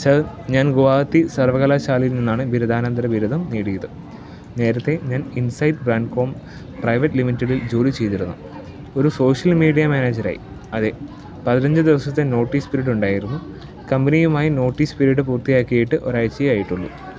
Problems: background sounds at intervals, low volume